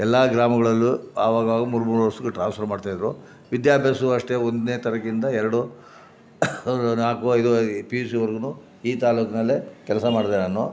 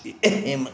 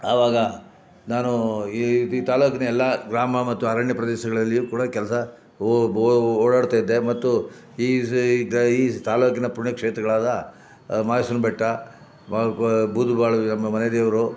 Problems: background sounds at intervals